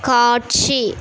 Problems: constant background noise